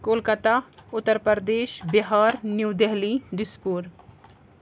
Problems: none marked